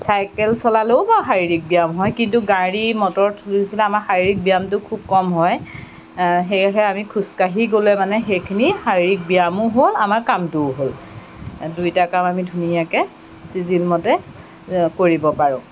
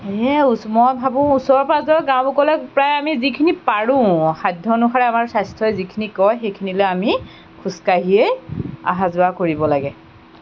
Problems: background sounds at intervals